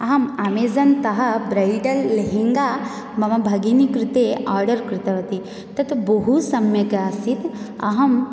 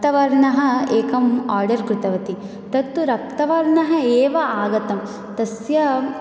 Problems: none marked